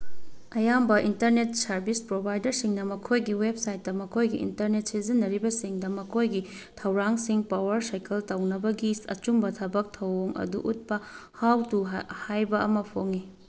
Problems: none marked